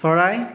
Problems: echo